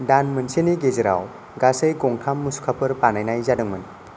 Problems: none marked